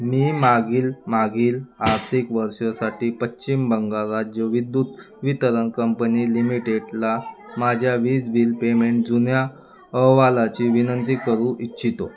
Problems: none marked